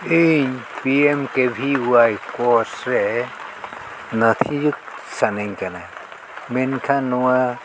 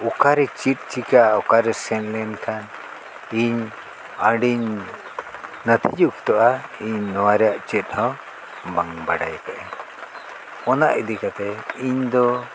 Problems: constant background noise